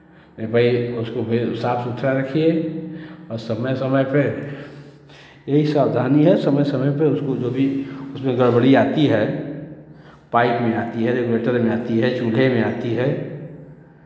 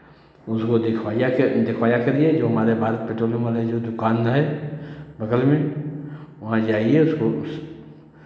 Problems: constant background noise, background conversations at intervals